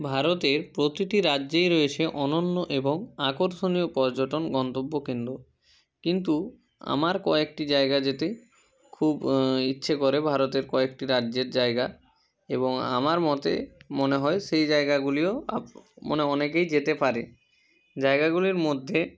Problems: none marked